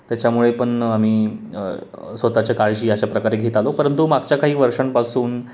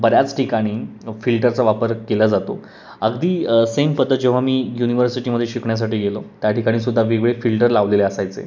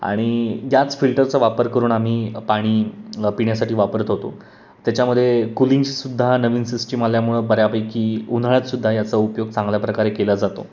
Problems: constant background noise, background conversations at intervals